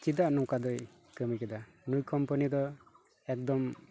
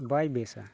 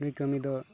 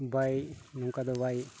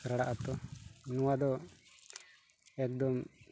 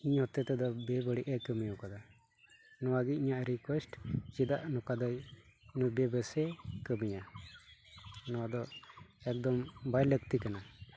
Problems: background sounds at intervals